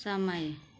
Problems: none marked